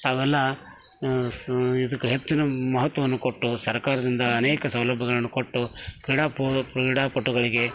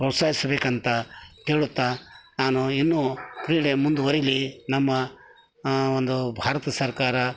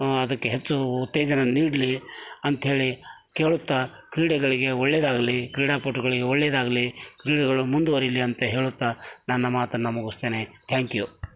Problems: none marked